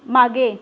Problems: none marked